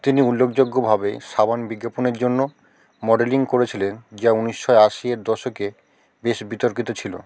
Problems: none marked